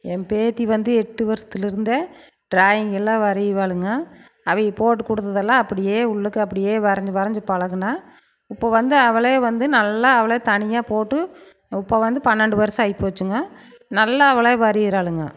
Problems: constant background noise